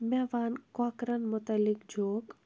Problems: background sounds at intervals